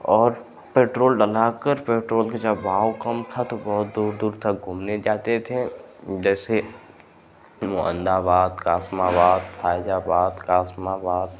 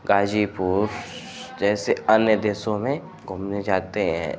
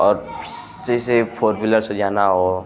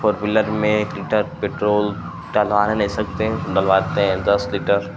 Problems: constant background noise